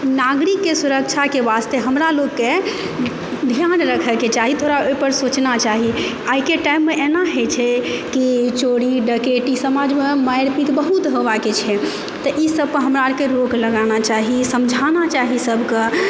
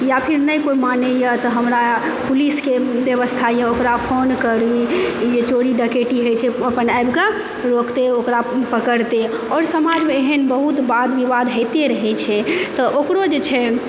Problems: constant background noise